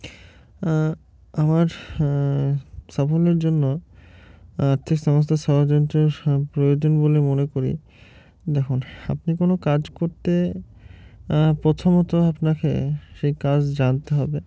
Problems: constant background noise